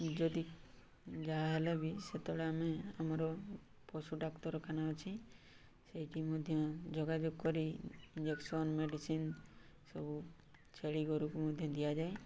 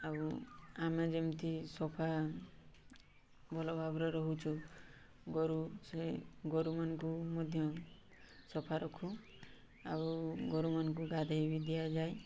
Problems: none marked